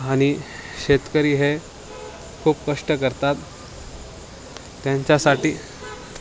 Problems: constant background noise, continuous background conversations